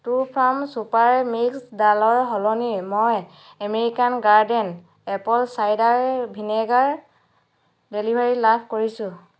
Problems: constant background noise